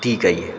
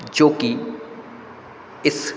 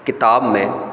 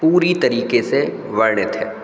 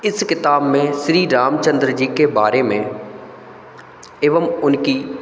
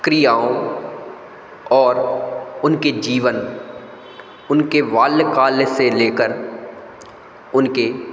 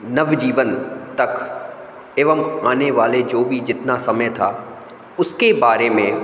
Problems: constant background noise, echo